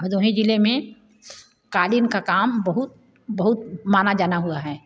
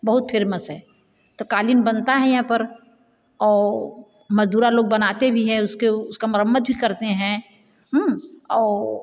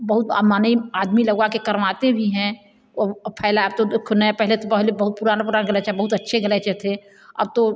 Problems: none marked